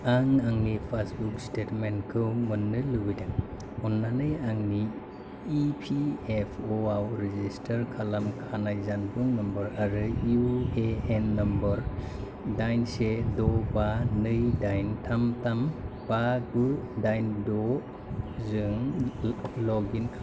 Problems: constant background noise